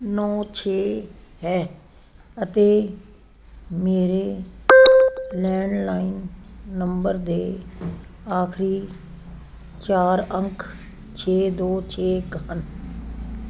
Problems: constant background noise